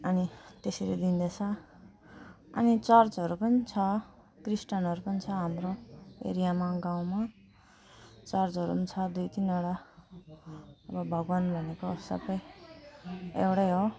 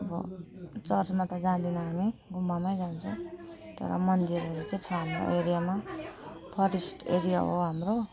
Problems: none marked